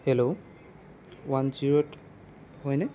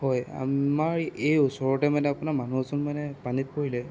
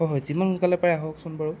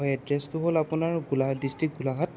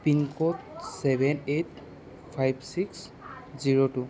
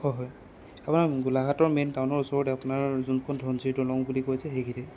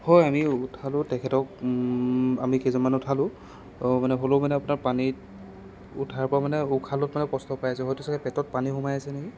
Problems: none marked